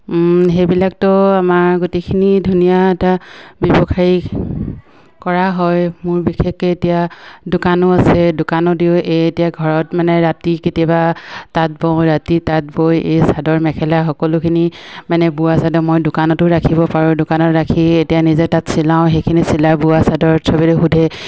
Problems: none marked